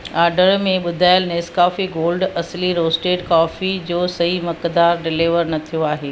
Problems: constant background noise